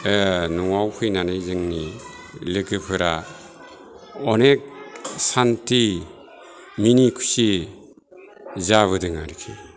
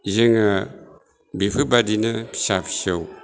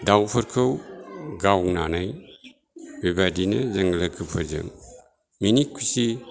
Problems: low volume